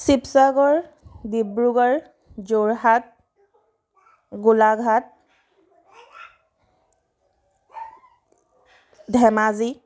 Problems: none marked